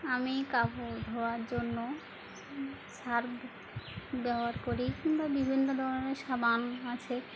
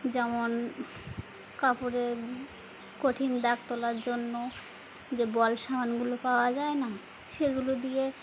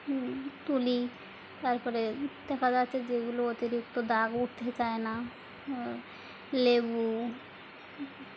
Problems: background sounds at intervals